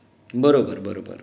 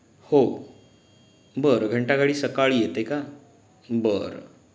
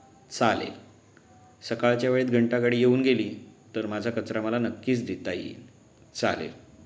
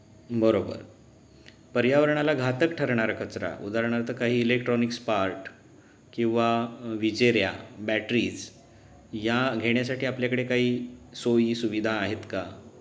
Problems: background sounds at intervals